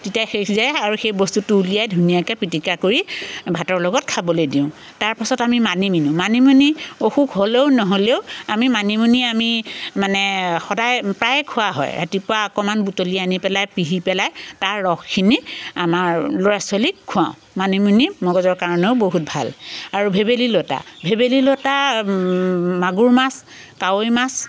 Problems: constant background noise